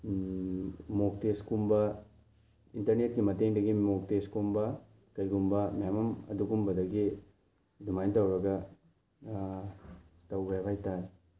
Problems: background sounds at intervals